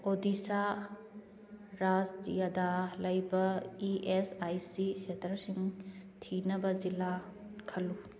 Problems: background conversations at intervals